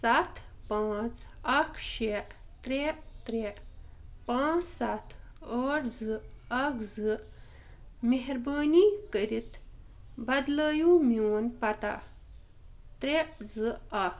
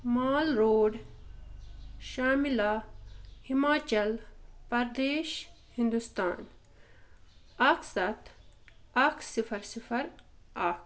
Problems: none marked